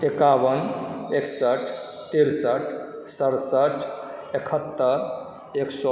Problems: background sounds at intervals